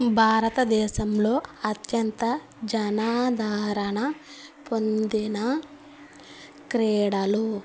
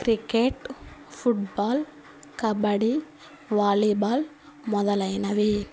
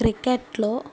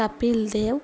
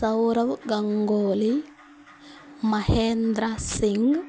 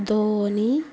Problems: constant background noise